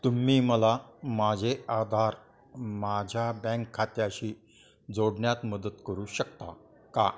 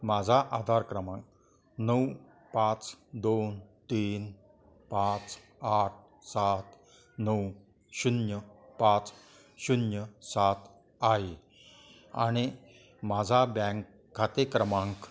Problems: continuous background conversations